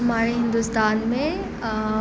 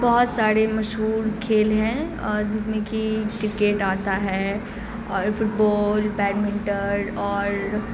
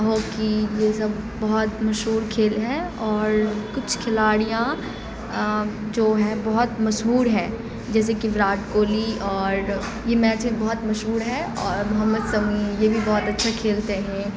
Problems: constant background noise